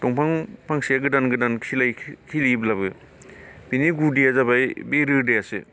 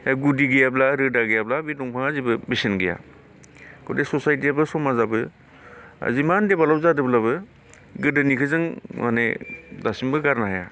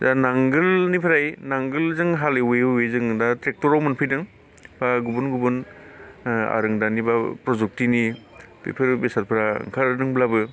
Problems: none marked